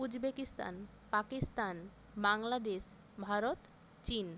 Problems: constant background noise